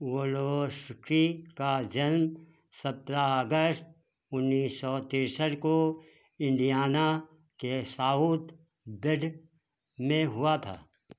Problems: constant background noise